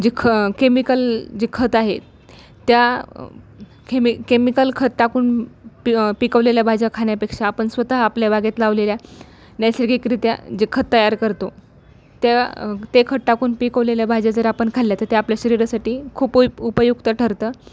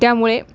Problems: none marked